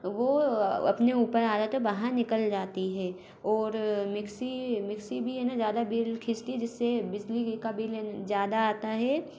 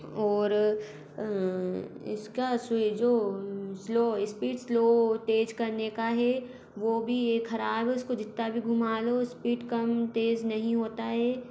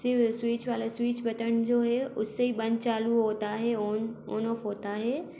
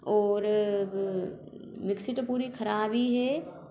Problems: constant background noise